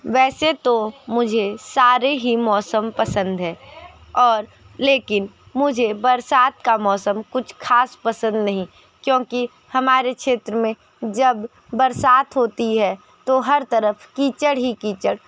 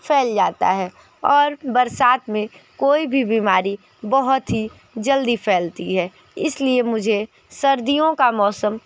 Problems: constant background noise, background conversations at intervals